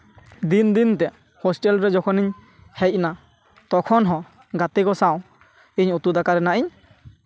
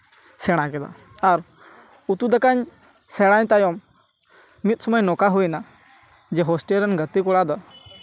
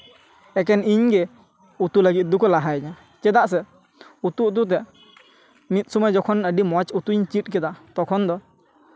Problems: none marked